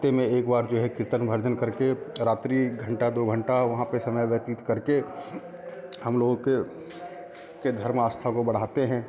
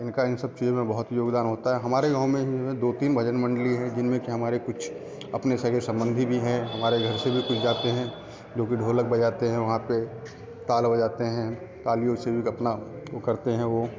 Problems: none marked